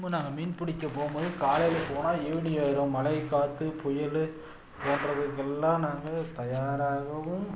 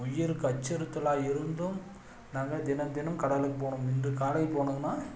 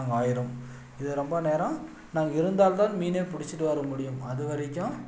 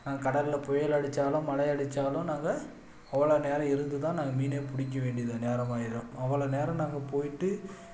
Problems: background sounds at intervals